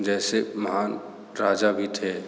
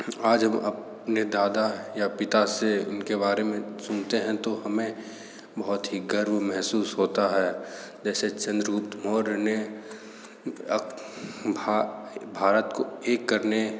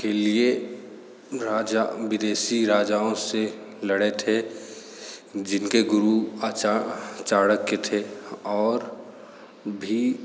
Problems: constant background noise, echo